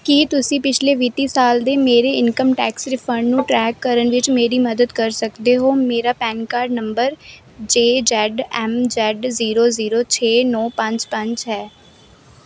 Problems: none marked